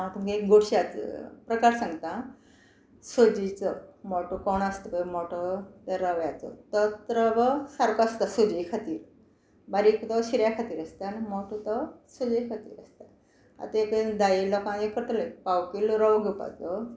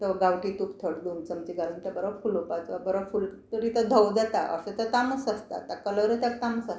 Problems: constant background noise